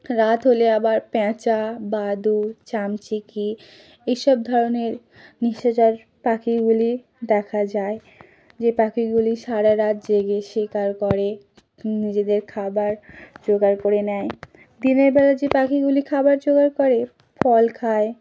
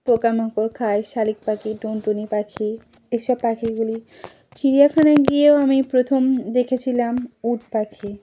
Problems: none marked